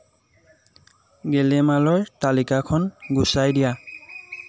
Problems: constant background noise